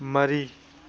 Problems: none marked